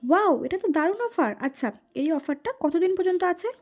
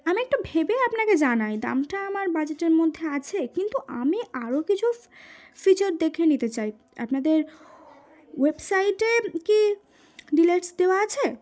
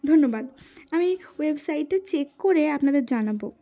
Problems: background sounds at intervals